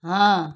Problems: none marked